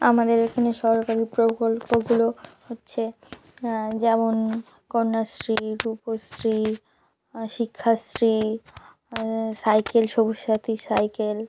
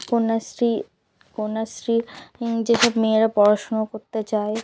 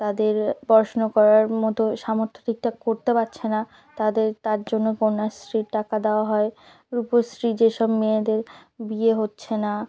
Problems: none marked